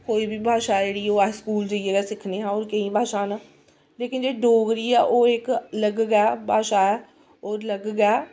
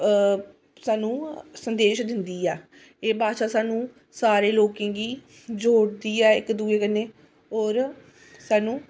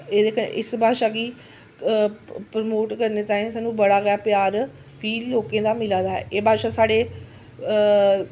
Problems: constant background noise